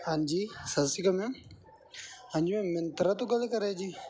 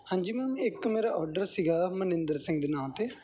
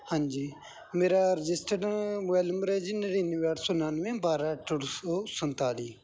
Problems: background sounds at intervals